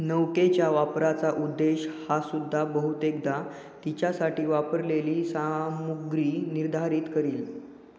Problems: echo